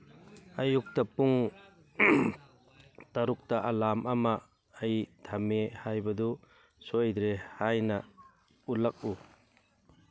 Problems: background conversations at intervals